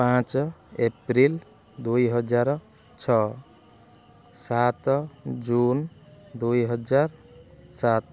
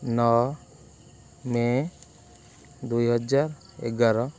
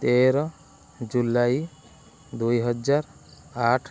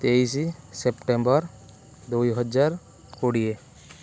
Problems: none marked